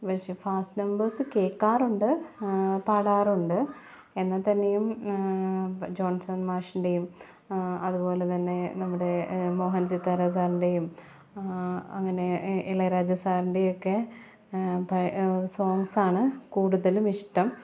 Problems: background sounds at intervals